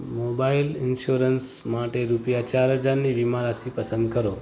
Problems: constant background noise